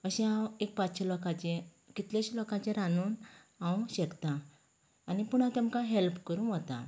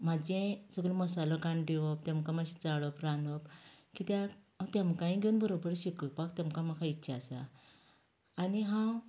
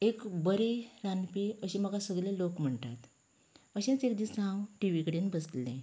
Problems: background sounds at intervals